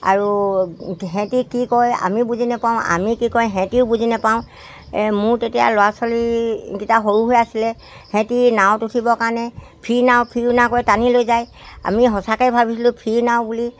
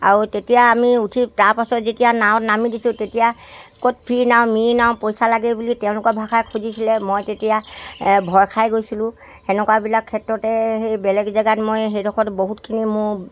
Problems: background sounds at intervals